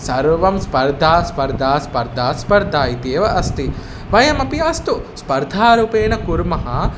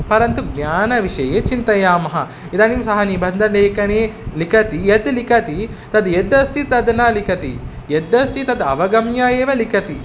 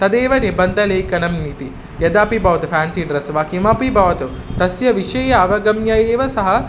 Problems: constant background noise